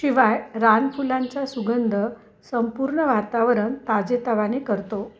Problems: background sounds at intervals